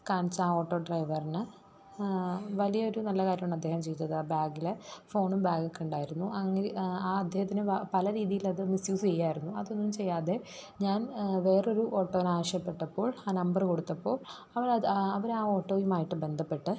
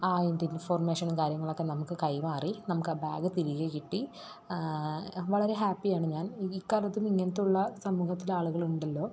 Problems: low volume